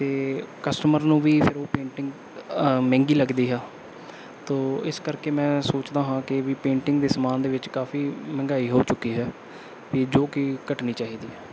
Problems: background sounds at intervals